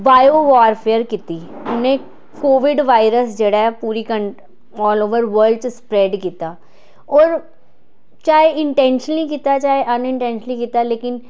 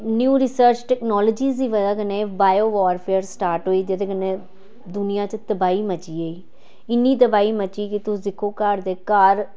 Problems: none marked